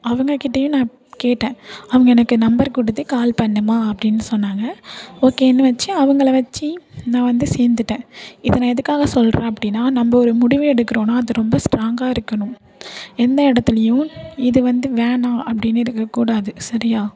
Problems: none marked